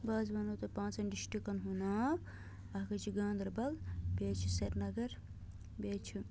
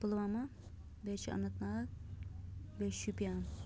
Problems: low volume